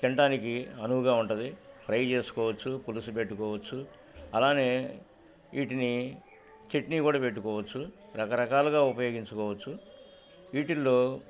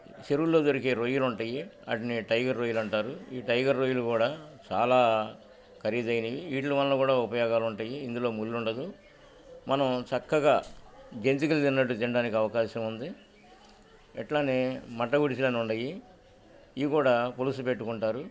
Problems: none marked